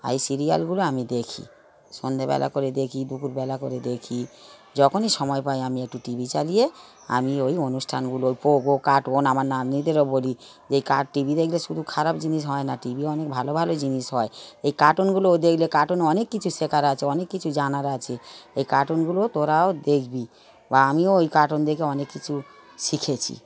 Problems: continuous background conversations